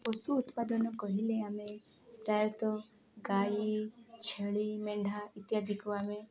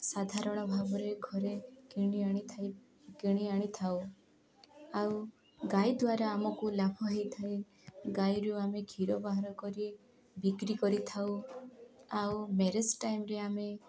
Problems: background conversations at intervals